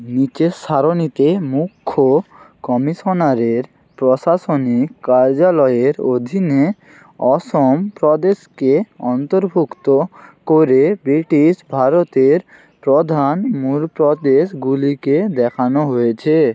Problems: constant background noise